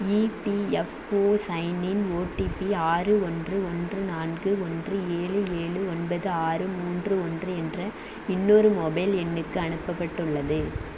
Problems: constant background noise